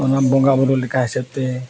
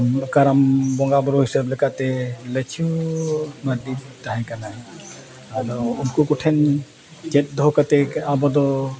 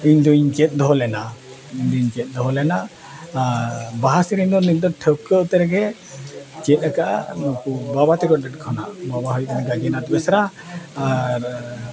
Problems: constant background noise, continuous background conversations